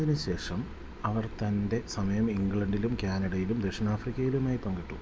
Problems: low volume